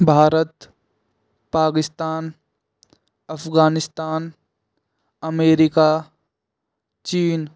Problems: constant background noise